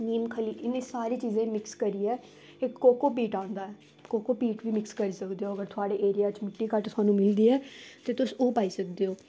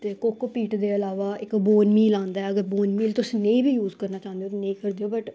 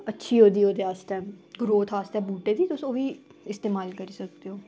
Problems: none marked